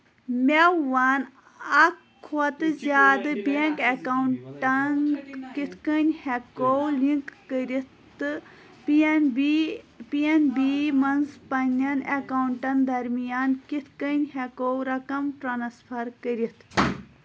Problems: constant background noise, background conversations at intervals